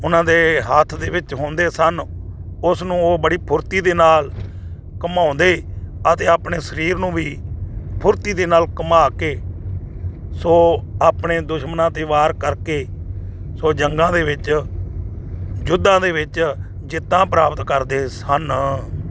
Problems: constant background noise